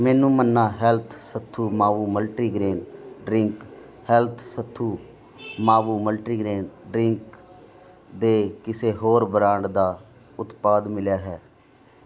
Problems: none marked